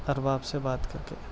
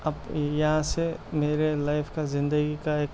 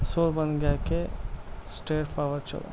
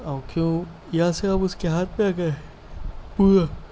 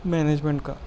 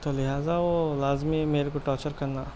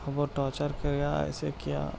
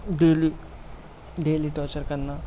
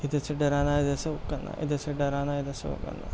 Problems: constant background noise